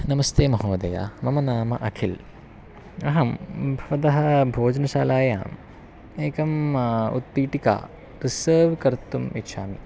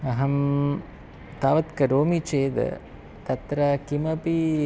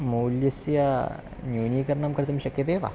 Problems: constant background noise